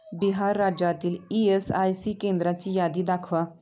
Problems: continuous background conversations